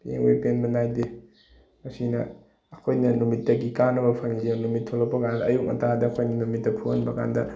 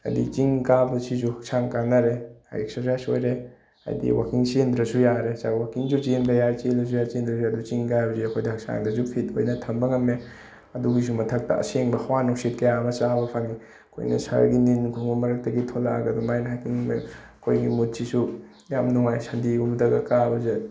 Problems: background sounds at intervals